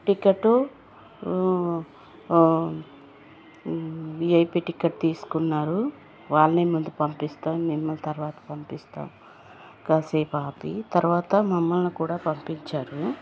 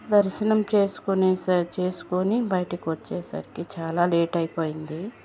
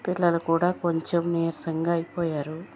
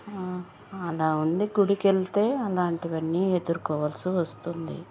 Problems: constant background noise